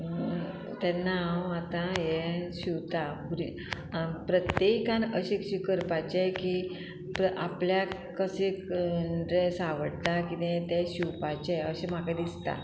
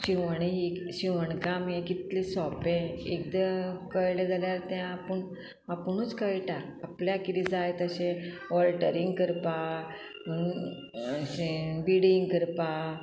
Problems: none marked